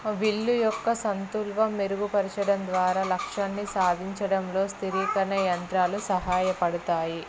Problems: constant background noise, background conversations at intervals